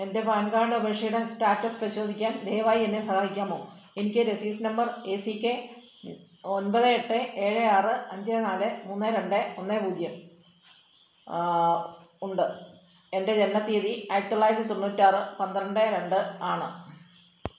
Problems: none marked